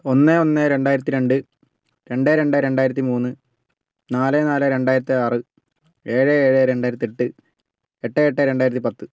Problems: none marked